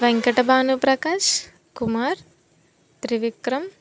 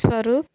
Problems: background sounds at intervals